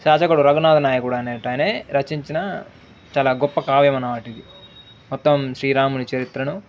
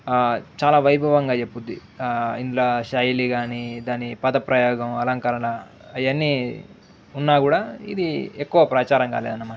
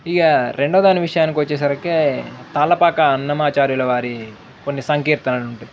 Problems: background sounds at intervals